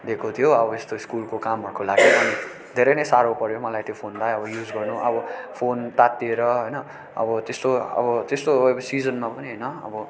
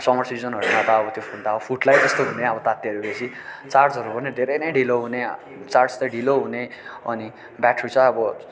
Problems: constant background noise, background conversations at intervals